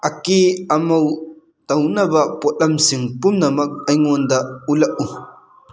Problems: background sounds at intervals